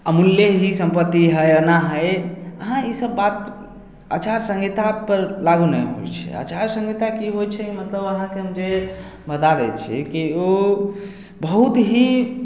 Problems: none marked